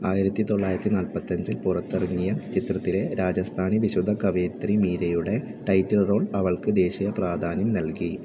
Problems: background sounds at intervals